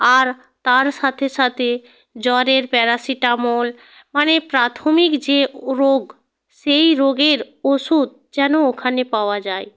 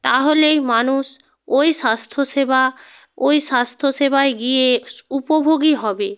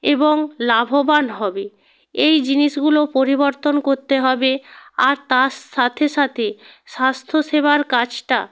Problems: constant background noise